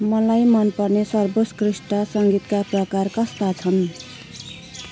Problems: constant background noise